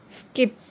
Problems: none marked